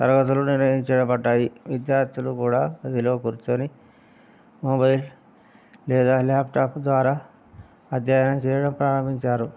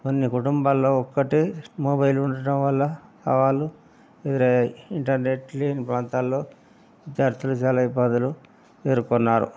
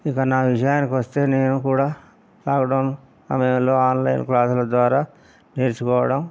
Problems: none marked